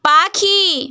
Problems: none marked